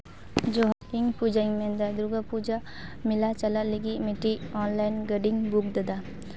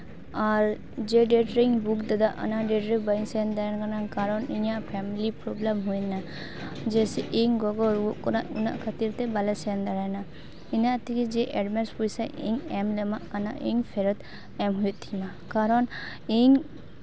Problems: none marked